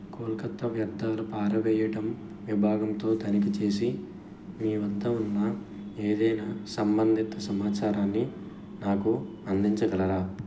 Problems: background sounds at intervals, background conversations at intervals